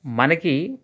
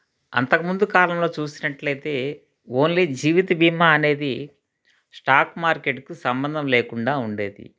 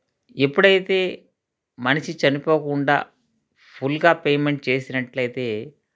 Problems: none marked